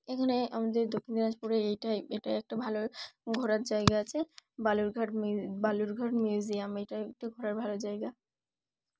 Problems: background sounds at intervals